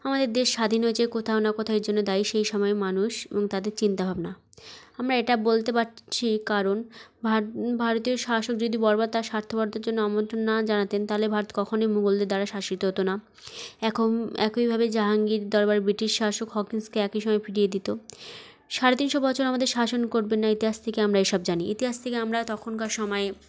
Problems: background sounds at intervals